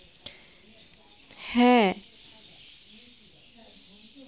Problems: constant background noise